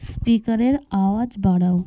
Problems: none marked